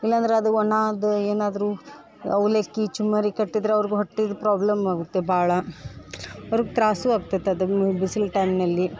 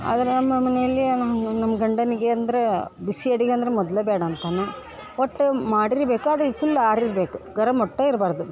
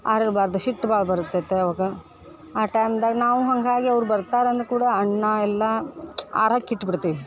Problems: background conversations at intervals